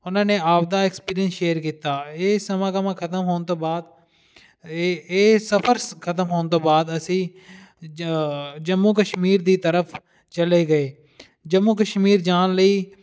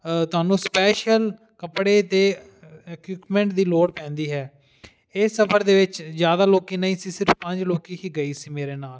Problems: background sounds at intervals